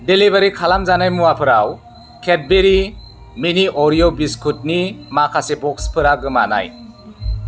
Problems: constant background noise